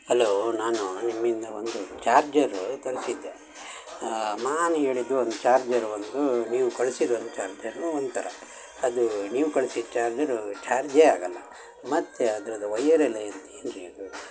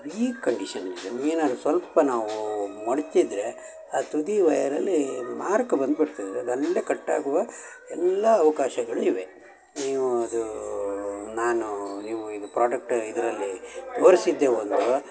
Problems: constant background noise, background conversations at intervals